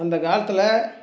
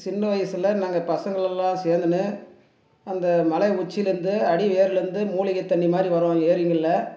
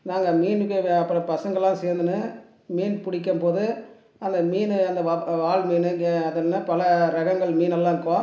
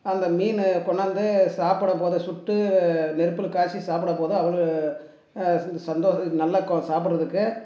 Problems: none marked